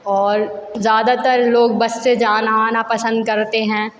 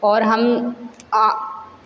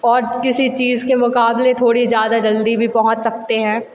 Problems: none marked